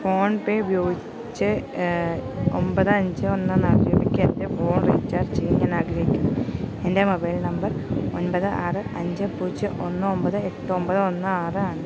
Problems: constant background noise